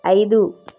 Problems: constant background noise